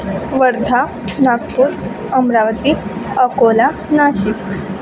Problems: constant background noise, continuous background conversations